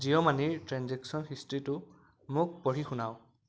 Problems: constant background noise